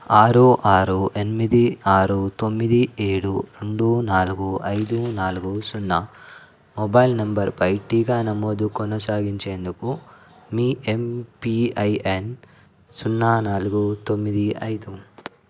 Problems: constant background noise